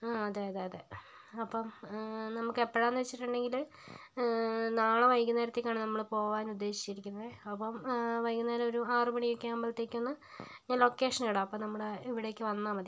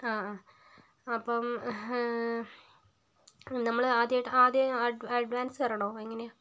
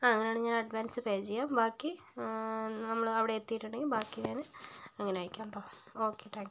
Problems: low volume